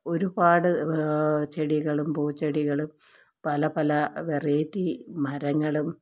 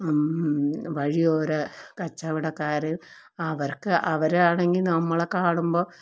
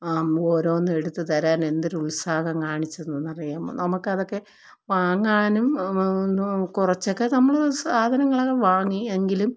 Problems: low volume